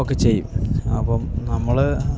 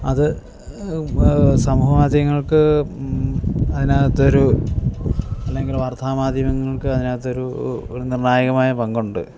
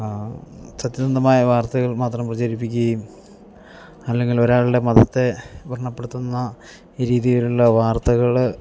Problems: none marked